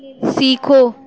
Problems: none marked